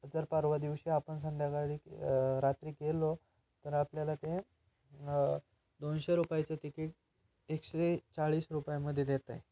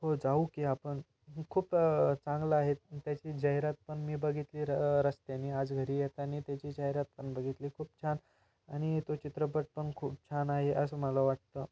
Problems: background sounds at intervals